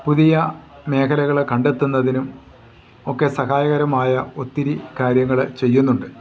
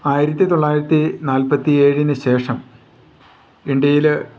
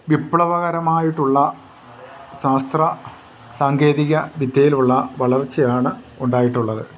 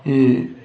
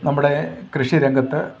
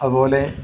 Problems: none marked